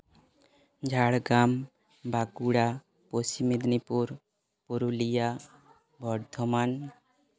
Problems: background conversations at intervals